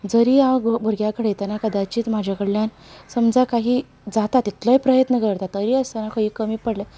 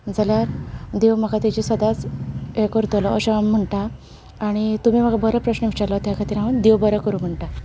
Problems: none marked